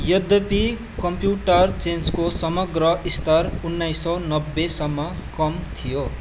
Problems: none marked